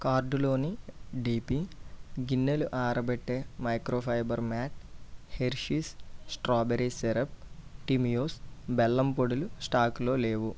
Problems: low volume